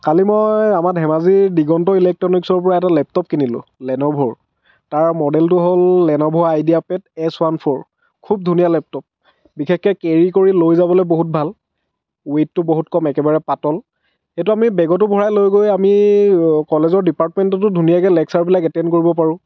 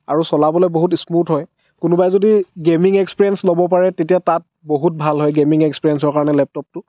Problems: none marked